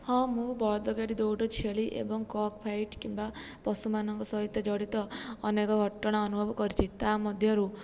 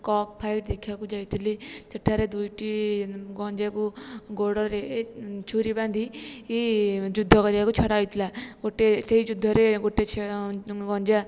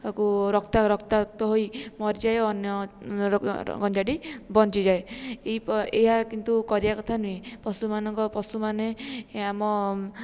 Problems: low volume